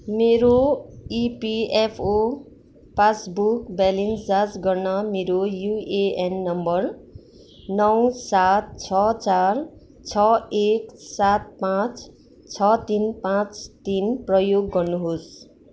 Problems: constant background noise